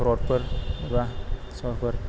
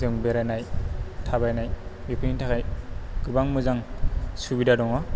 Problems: none marked